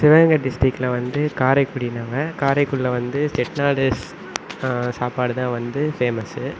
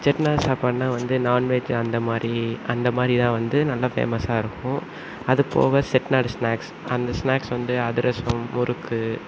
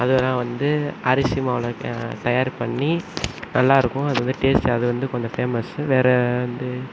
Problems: none marked